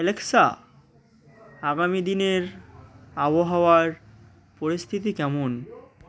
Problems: none marked